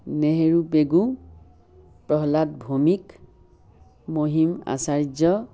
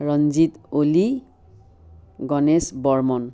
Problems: constant background noise